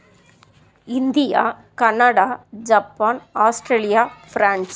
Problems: constant background noise